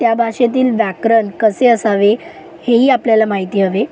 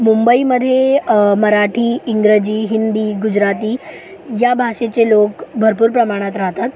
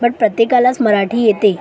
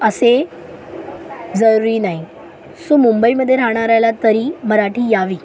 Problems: constant background noise, background conversations at intervals